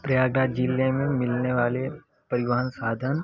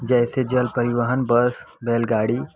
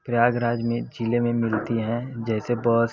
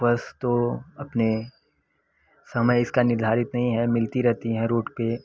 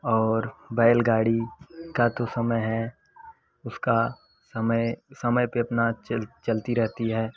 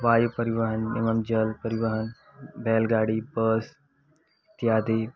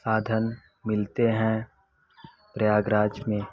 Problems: background conversations at intervals